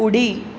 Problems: constant background noise